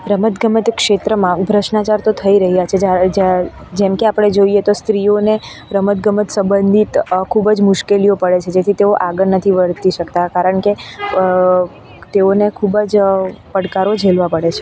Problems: constant background noise